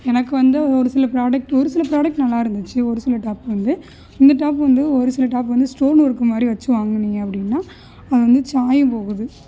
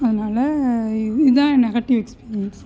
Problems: none marked